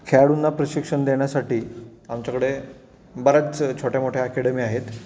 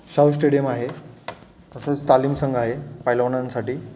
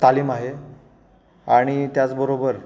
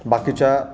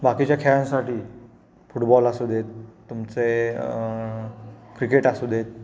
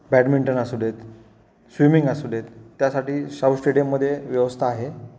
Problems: none marked